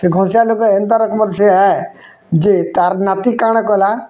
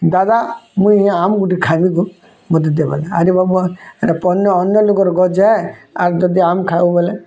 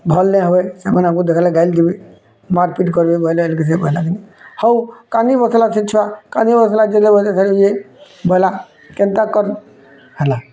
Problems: background sounds at intervals